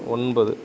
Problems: none marked